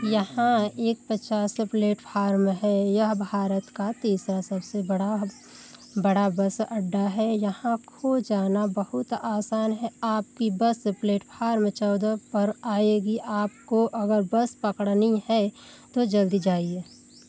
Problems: constant background noise